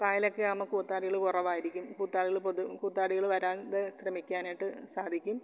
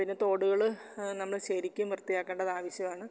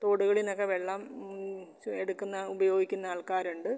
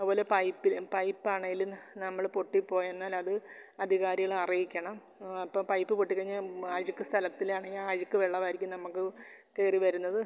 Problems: none marked